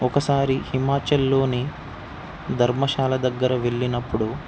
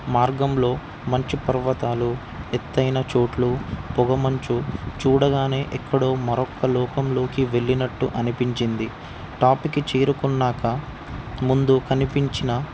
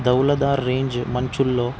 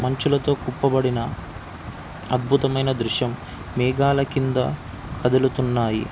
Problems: none marked